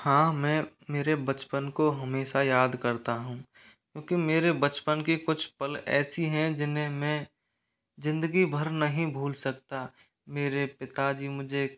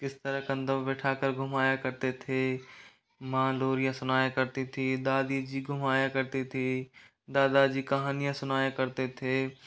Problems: constant background noise